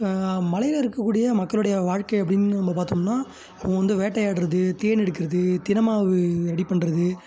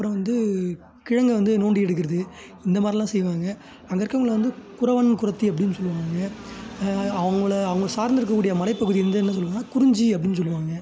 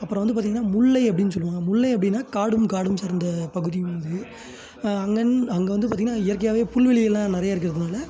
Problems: background sounds at intervals